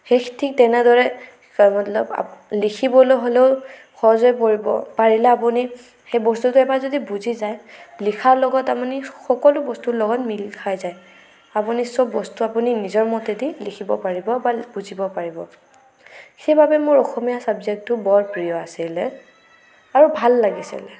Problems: none marked